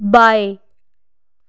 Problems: constant background noise